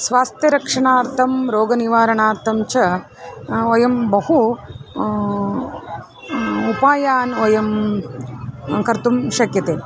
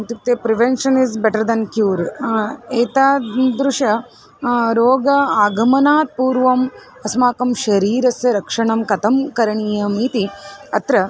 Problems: constant background noise, background conversations at intervals